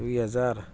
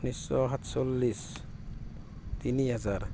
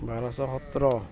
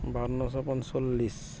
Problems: constant background noise